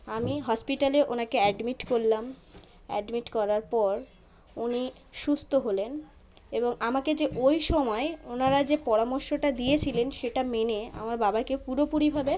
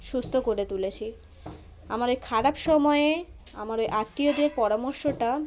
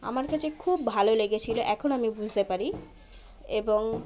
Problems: constant background noise, continuous background conversations